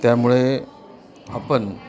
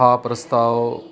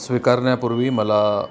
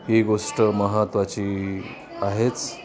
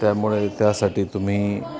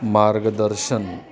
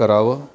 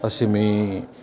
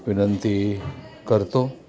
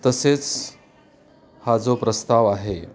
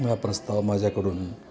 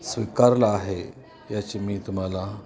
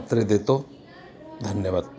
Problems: none marked